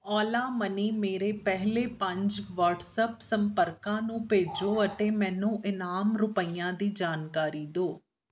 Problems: background sounds at intervals